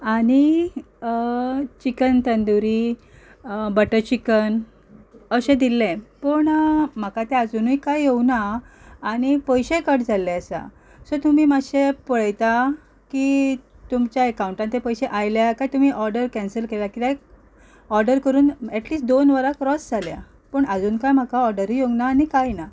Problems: background sounds at intervals, background conversations at intervals